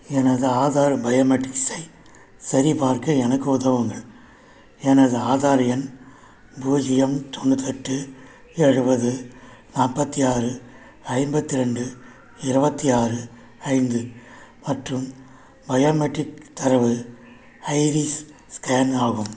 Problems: none marked